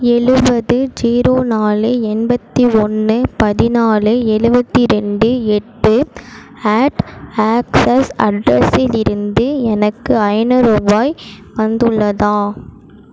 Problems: none marked